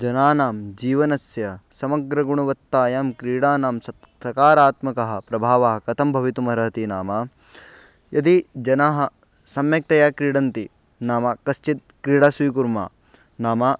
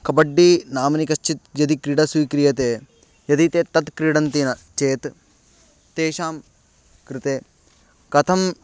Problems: none marked